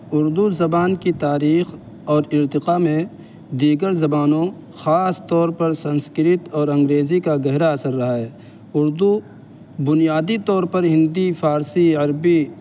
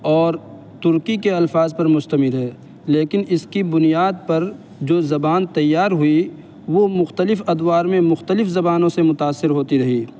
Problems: constant background noise